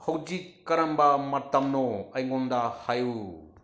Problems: low volume